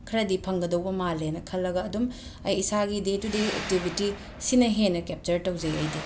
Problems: background sounds at intervals